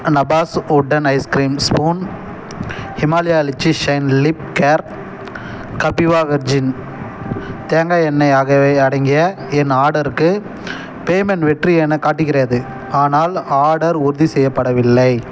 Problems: background sounds at intervals